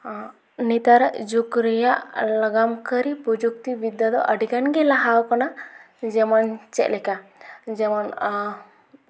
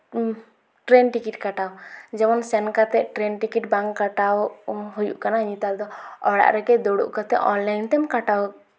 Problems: none marked